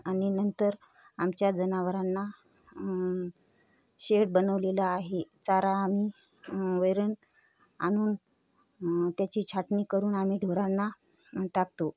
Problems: none marked